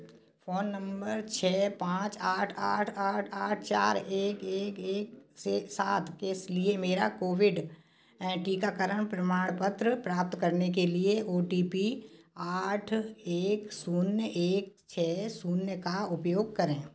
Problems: background sounds at intervals